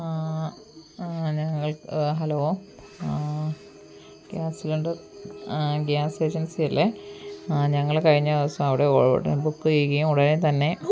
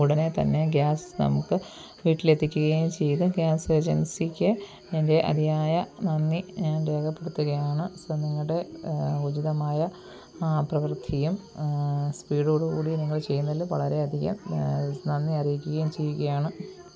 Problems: background sounds at intervals, low volume